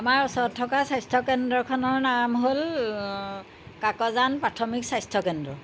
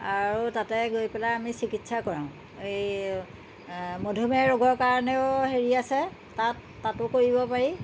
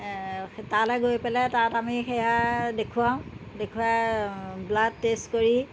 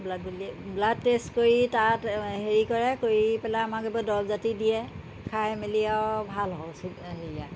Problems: constant background noise